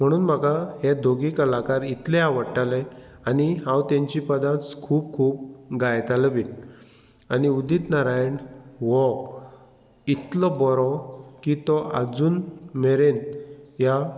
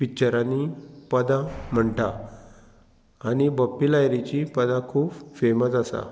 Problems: background sounds at intervals